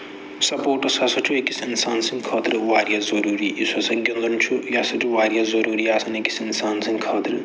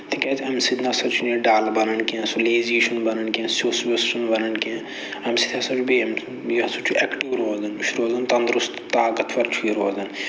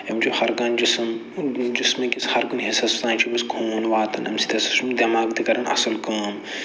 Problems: low volume